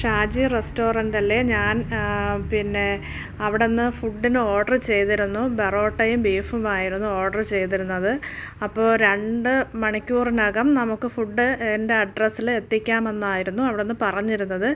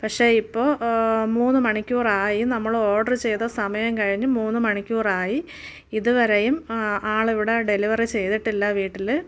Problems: background sounds at intervals